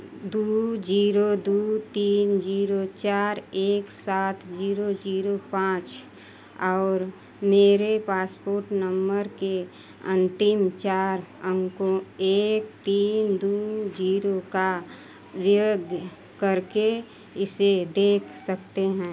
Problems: none marked